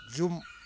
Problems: low volume